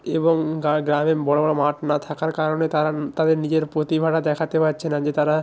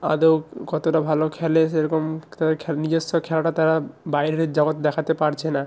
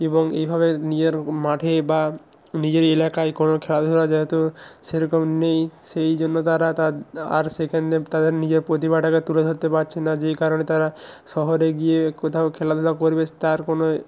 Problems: constant background noise